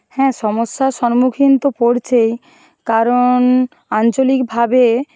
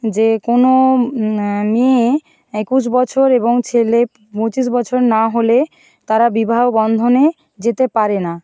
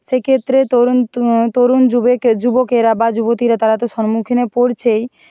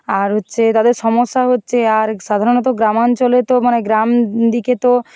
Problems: background sounds at intervals